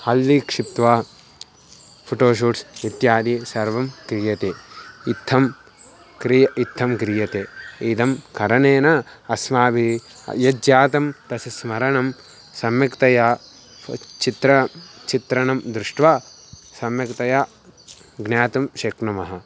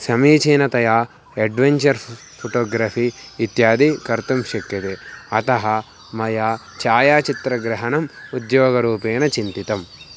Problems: constant background noise